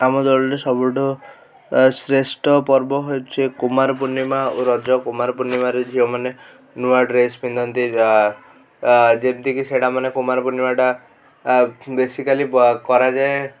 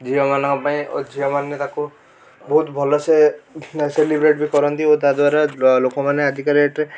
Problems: background sounds at intervals